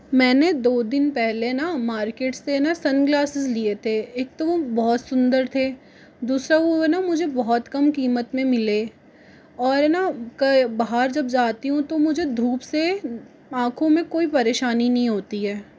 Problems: none marked